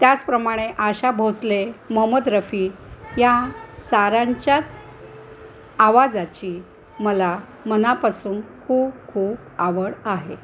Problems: constant background noise, background conversations at intervals